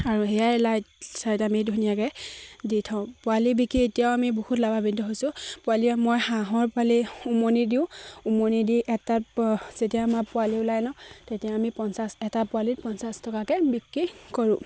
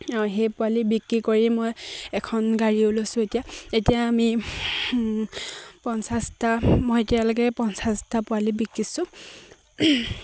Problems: constant background noise, background conversations at intervals